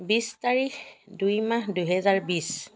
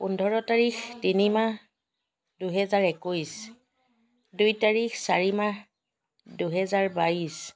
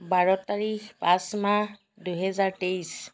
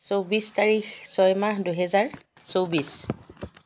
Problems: background sounds at intervals